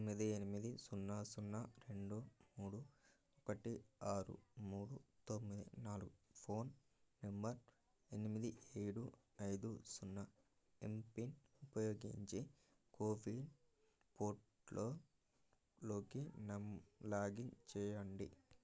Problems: low volume